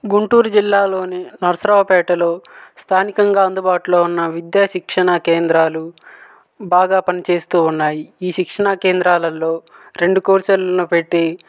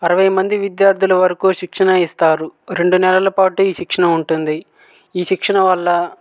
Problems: none marked